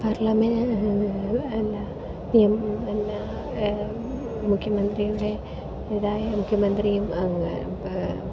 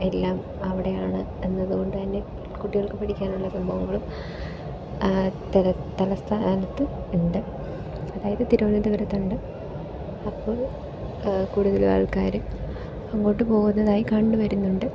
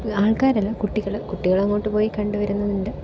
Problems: background sounds at intervals, low volume